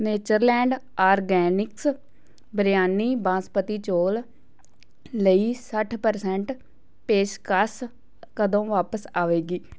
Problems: none marked